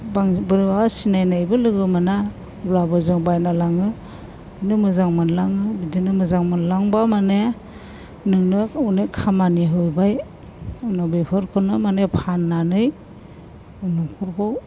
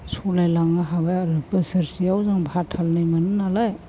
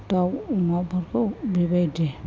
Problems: constant background noise